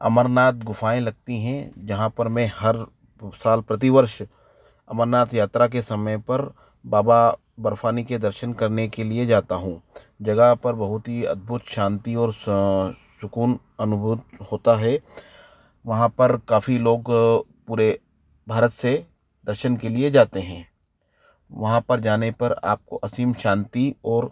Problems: none marked